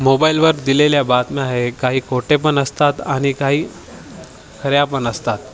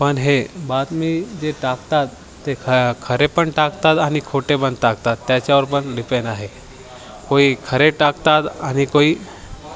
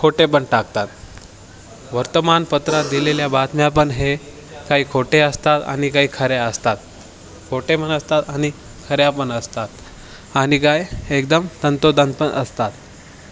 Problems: constant background noise, background conversations at intervals